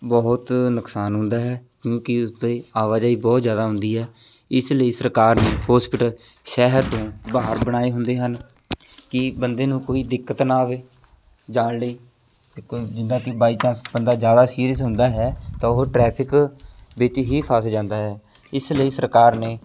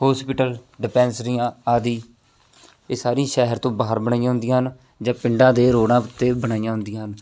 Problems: constant background noise